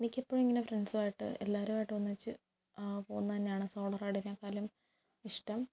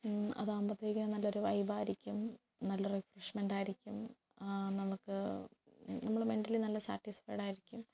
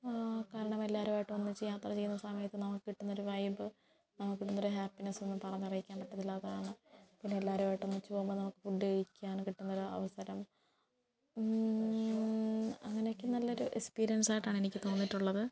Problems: background conversations at intervals, low volume